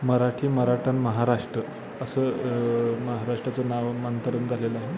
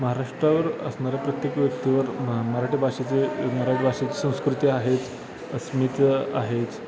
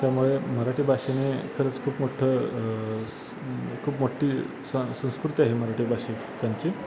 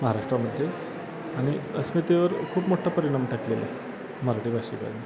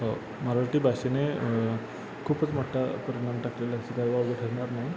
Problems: constant background noise, continuous background conversations